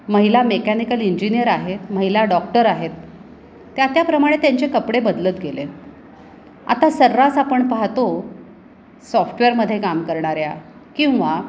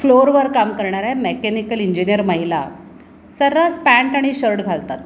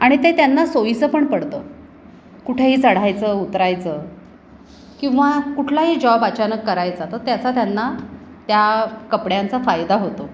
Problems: constant background noise